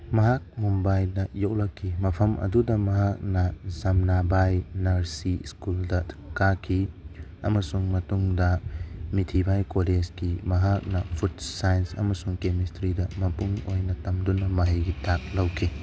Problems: background sounds at intervals